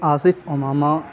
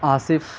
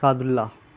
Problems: constant background noise